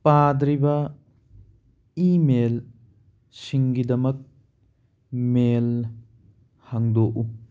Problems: none marked